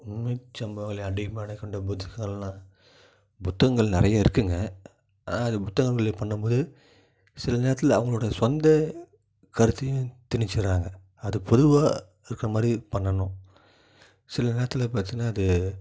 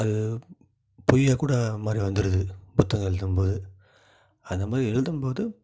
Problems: low volume